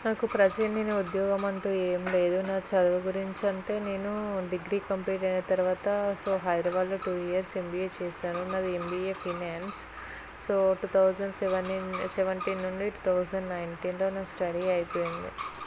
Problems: constant background noise